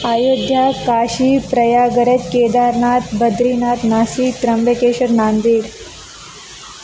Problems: constant background noise, background conversations at intervals